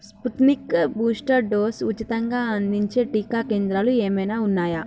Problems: none marked